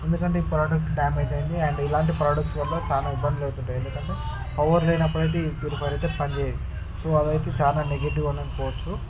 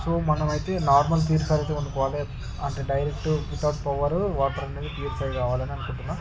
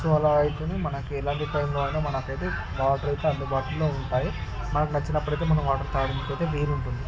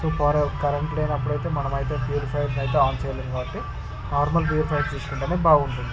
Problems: none marked